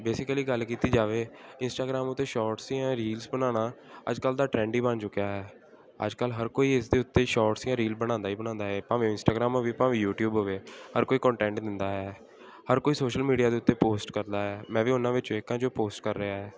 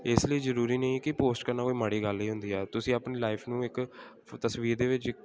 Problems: constant background noise